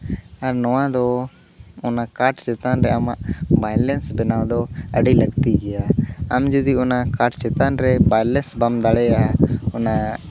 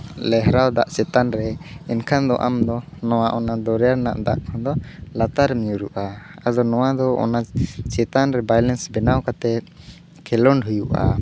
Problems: none marked